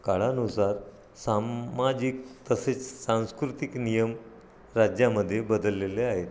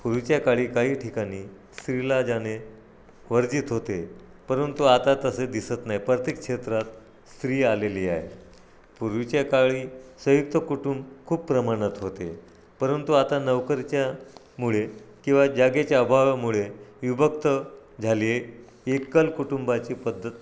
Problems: none marked